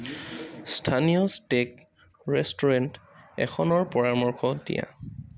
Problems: constant background noise